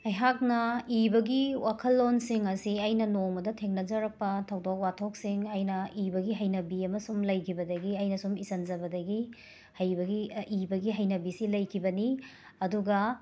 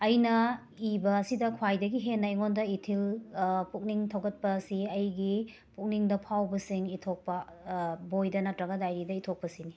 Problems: background sounds at intervals